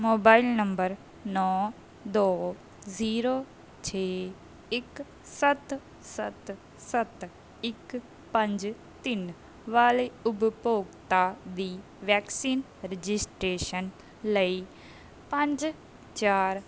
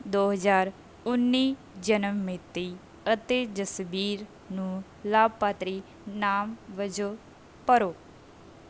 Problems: background sounds at intervals